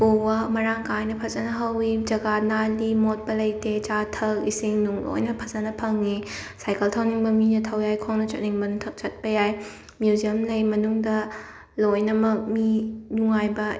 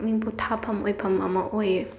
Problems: background sounds at intervals